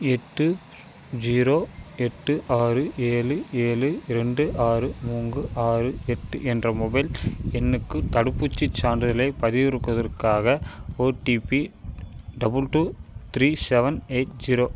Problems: constant background noise